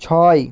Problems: constant background noise